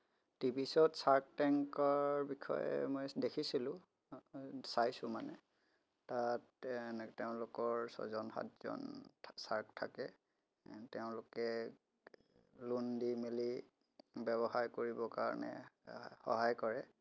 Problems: background sounds at intervals